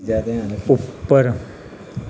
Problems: background conversations at intervals